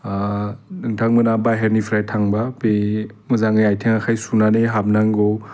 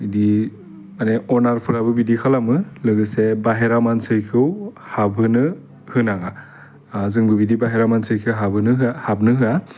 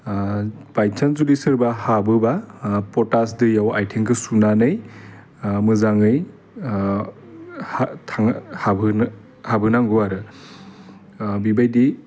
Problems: constant background noise